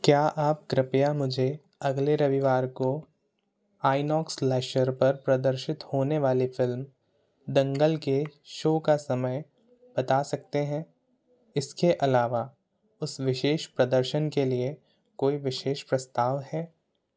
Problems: constant background noise